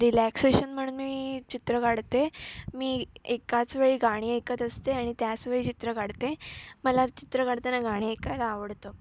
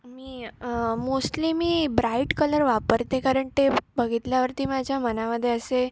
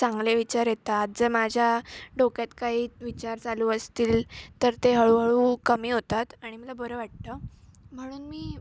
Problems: none marked